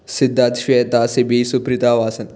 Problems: none marked